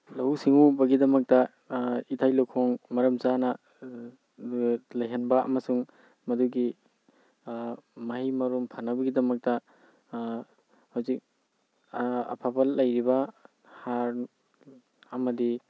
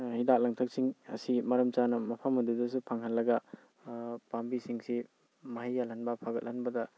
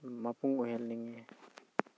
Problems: background sounds at intervals